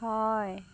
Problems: constant background noise